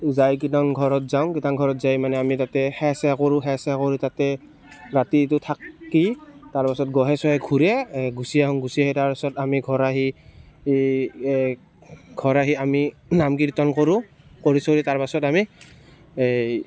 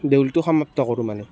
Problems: constant background noise